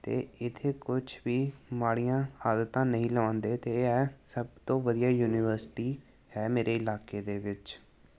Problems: none marked